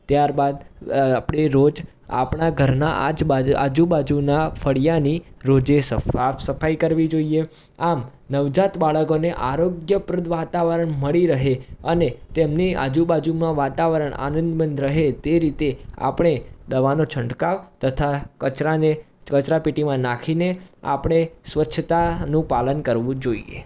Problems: background sounds at intervals